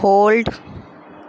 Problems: constant background noise